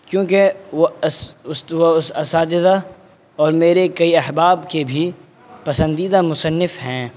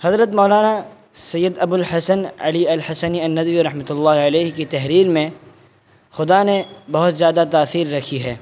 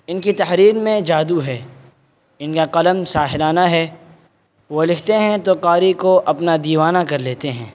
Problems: constant background noise